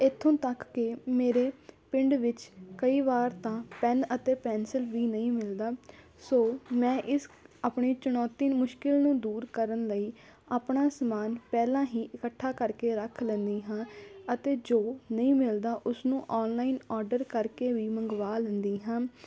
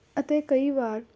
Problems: constant background noise, background conversations at intervals